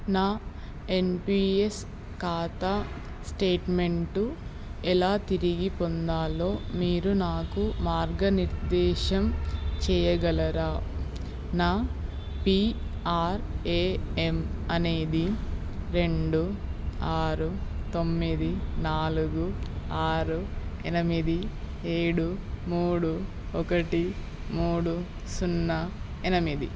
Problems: none marked